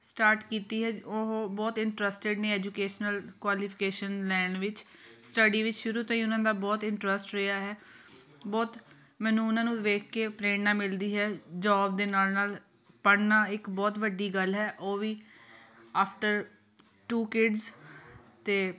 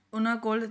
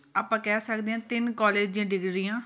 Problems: constant background noise, continuous background conversations